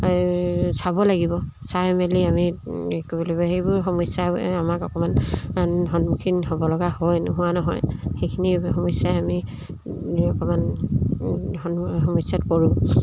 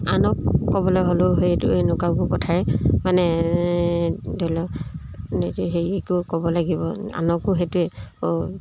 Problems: none marked